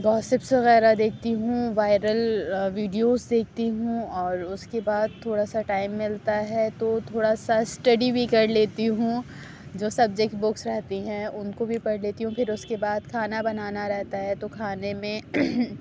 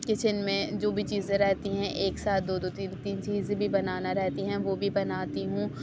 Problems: none marked